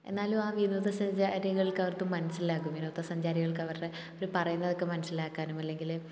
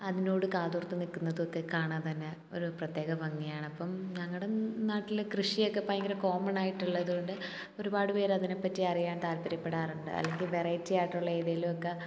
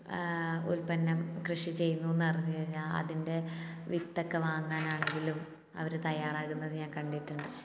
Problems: none marked